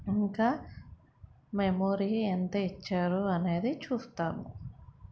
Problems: none marked